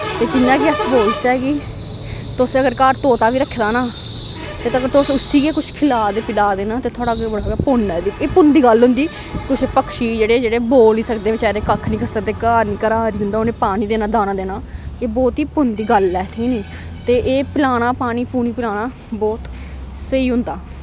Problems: constant background noise